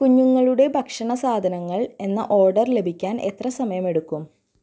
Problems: low volume